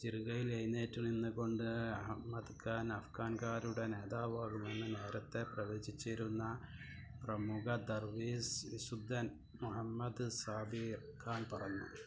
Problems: background sounds at intervals, low volume